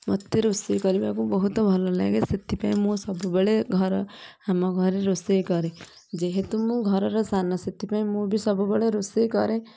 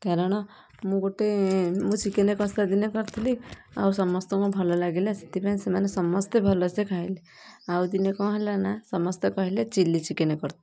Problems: none marked